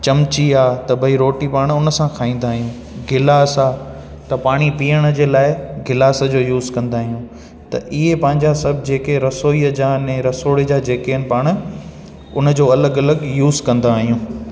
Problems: constant background noise, echo